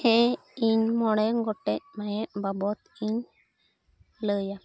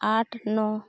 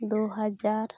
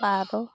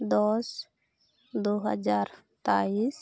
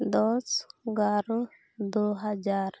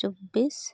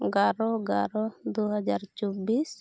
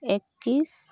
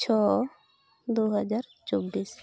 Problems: none marked